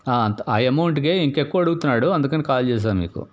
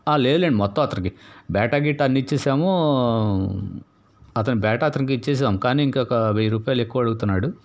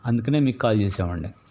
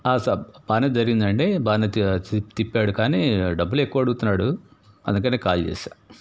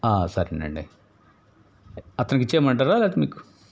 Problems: none marked